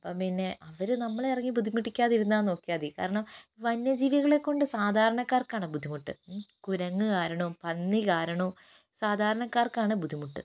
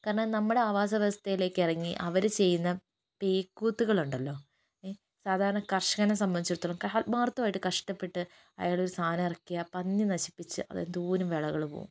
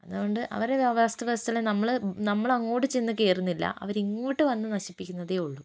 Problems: low volume